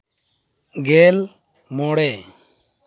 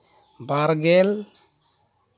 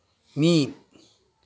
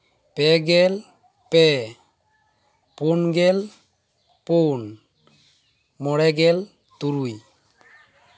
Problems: constant background noise